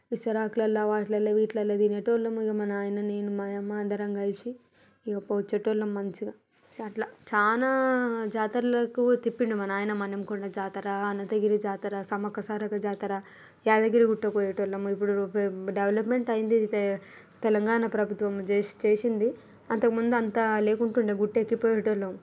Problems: background sounds at intervals